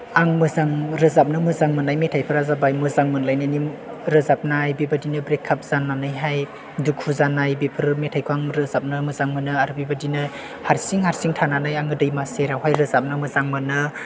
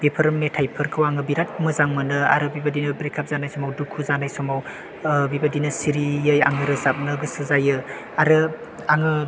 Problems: constant background noise, background conversations at intervals